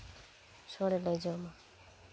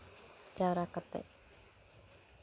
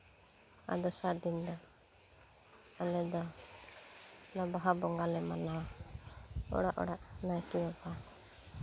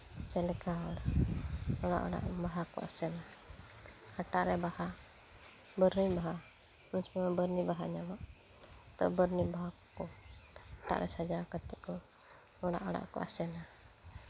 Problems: constant background noise